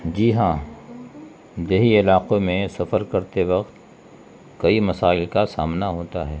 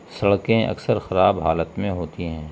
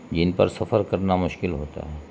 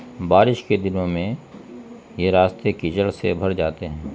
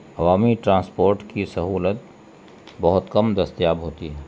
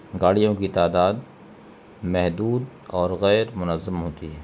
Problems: constant background noise